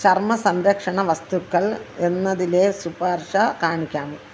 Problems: constant background noise